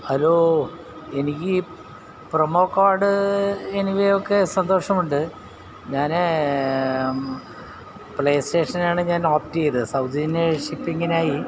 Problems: none marked